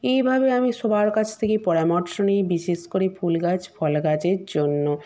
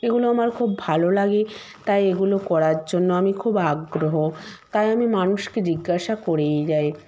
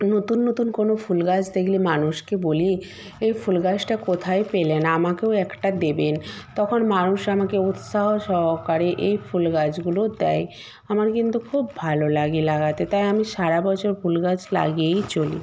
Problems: none marked